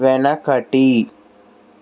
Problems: constant background noise